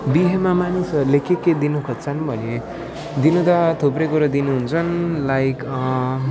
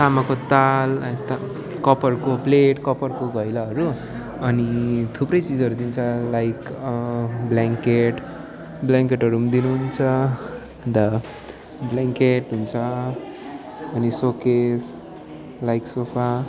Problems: constant background noise